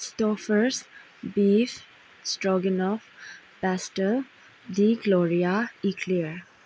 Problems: background sounds at intervals